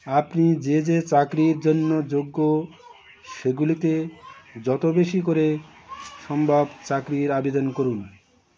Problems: constant background noise, continuous background conversations